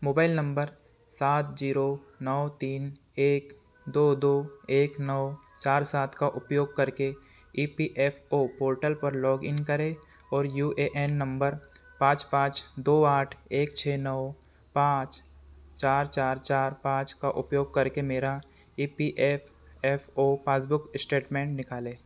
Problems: none marked